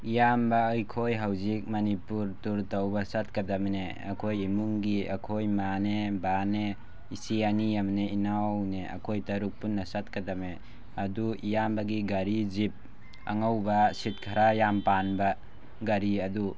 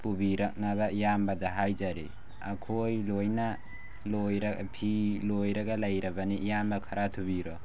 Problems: constant background noise